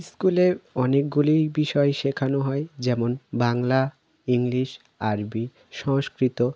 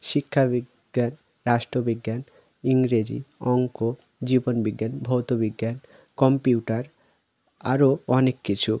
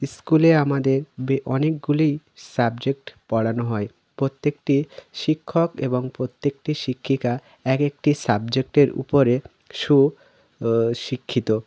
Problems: none marked